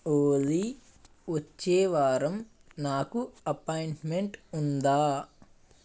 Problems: constant background noise